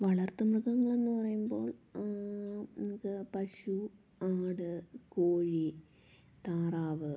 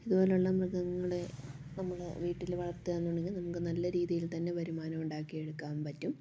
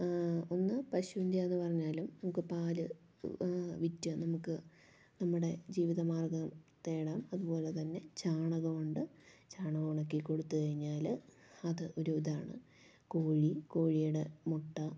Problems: low volume